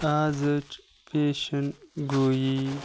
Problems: none marked